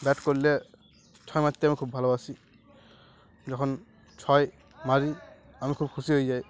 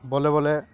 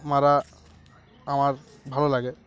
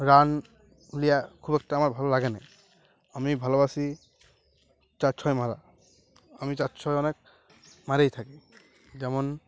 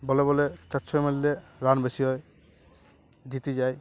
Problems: constant background noise, continuous background conversations